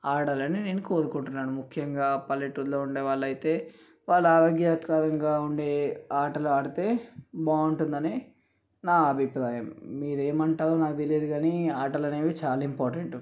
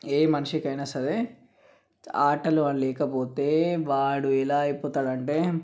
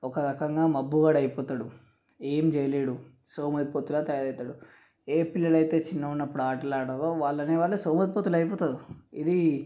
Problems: none marked